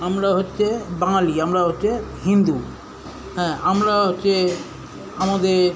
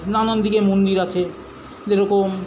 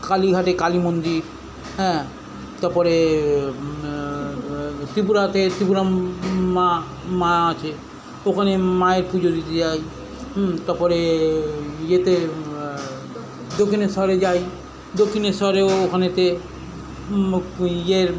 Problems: constant background noise, continuous background conversations